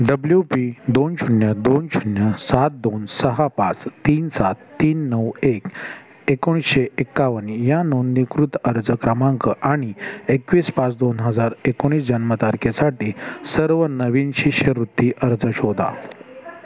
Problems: background sounds at intervals, continuous background conversations